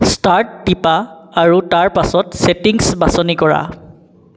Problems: constant background noise